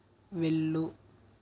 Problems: constant background noise, low volume